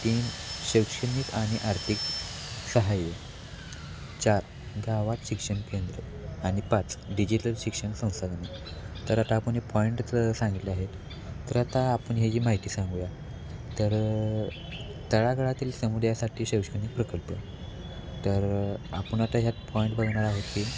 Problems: constant background noise